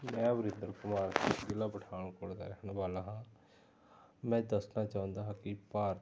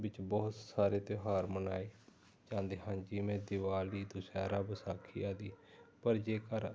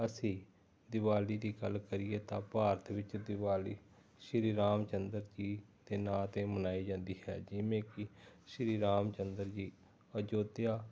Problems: none marked